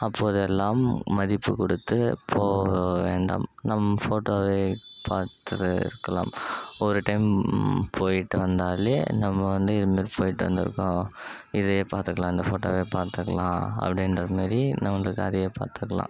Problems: background sounds at intervals